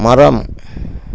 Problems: constant background noise